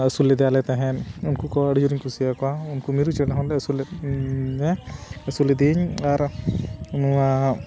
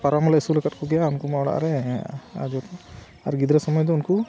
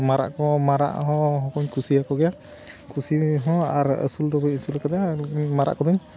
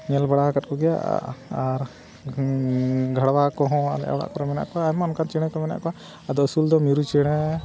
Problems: constant background noise